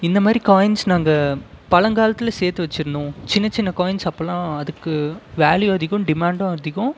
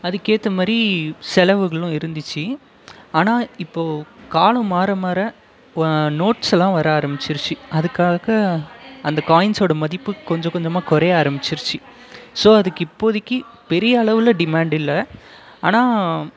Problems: constant background noise